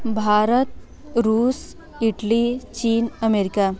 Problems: constant background noise, continuous background conversations